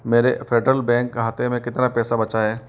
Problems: none marked